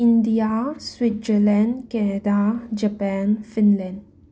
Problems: none marked